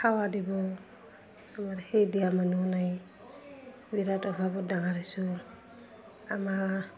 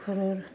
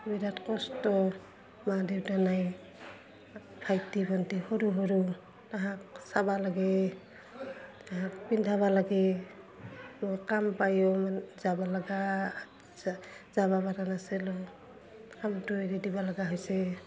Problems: constant background noise, continuous background conversations